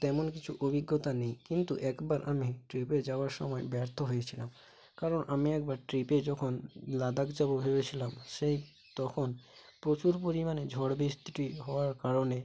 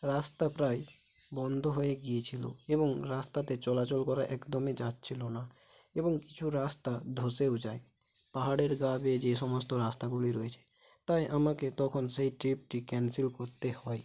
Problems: constant background noise, low volume